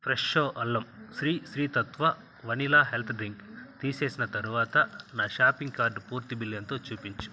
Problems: none marked